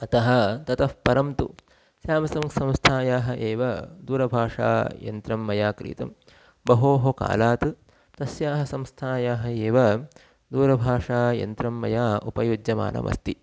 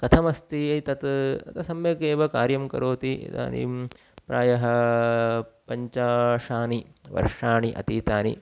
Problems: background sounds at intervals